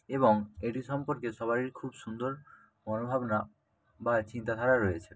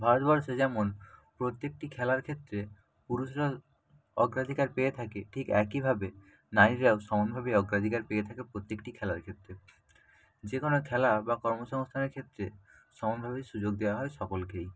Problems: constant background noise